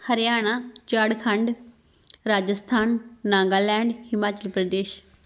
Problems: none marked